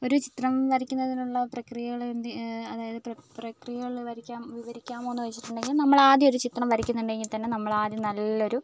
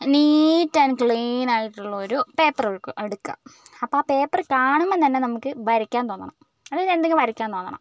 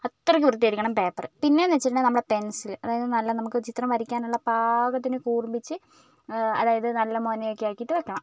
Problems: none marked